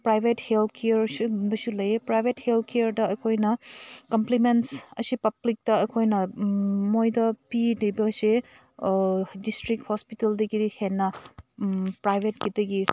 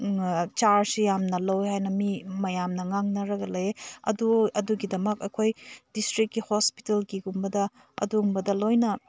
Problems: none marked